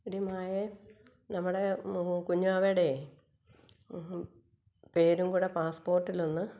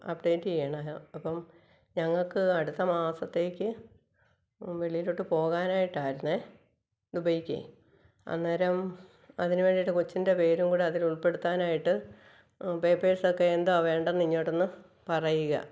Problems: background sounds at intervals